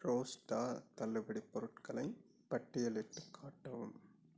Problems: low volume